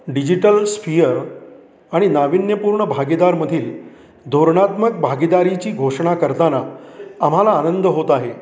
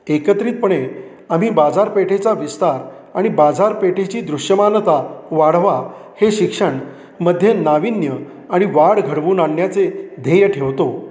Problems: constant background noise, continuous background conversations